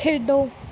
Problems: background sounds at intervals